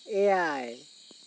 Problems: constant background noise